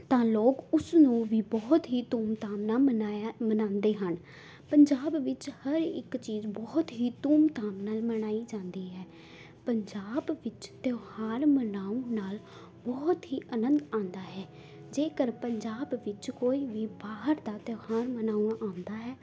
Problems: none marked